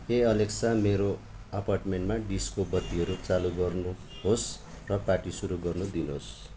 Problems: none marked